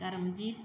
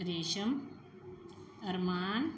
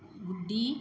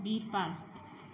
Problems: background sounds at intervals